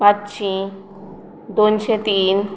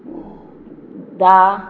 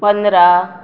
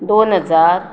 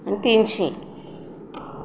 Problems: background sounds at intervals